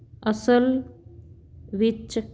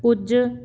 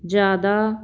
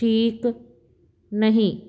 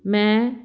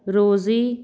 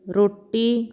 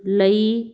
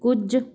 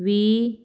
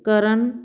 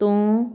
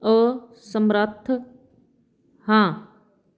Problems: none marked